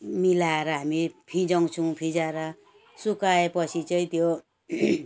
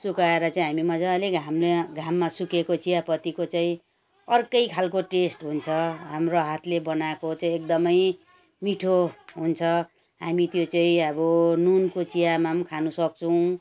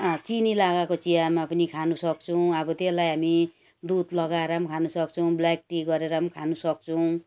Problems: background sounds at intervals